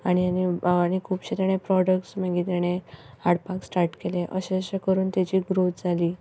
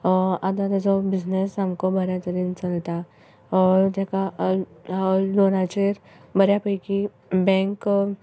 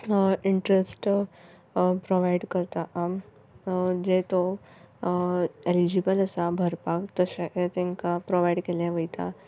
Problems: background sounds at intervals